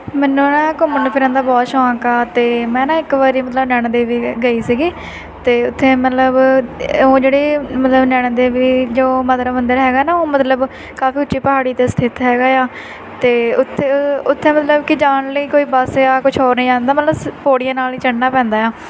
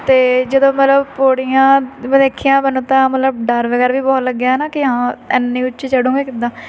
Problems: constant background noise, continuous background conversations